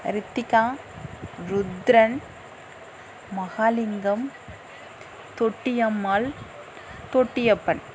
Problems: background sounds at intervals